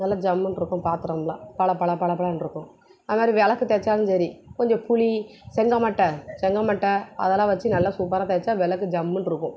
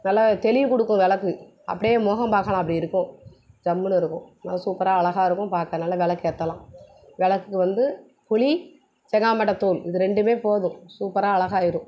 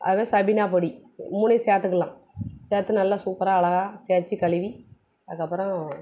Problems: background sounds at intervals